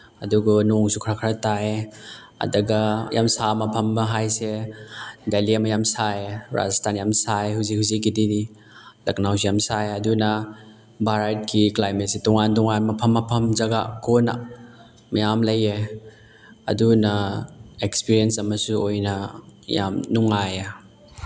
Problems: background sounds at intervals, background conversations at intervals